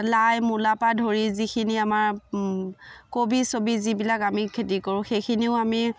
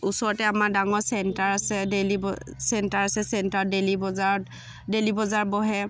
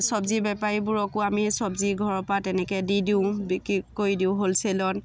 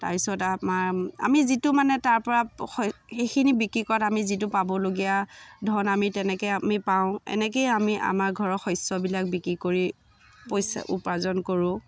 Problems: constant background noise, background conversations at intervals